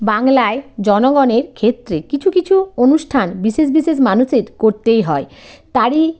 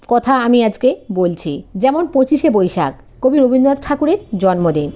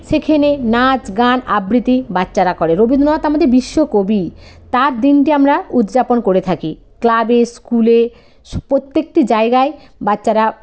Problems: none marked